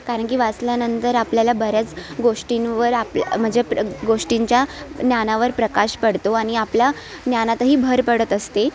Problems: constant background noise